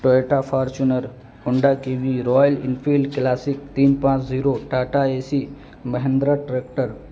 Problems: constant background noise